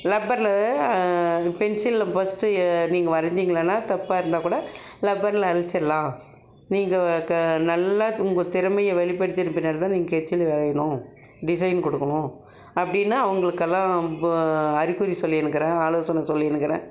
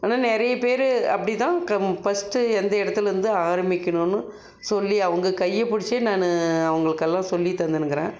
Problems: background sounds at intervals